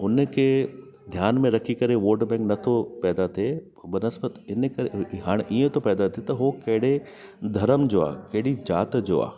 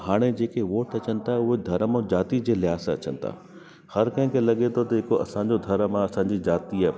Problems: constant background noise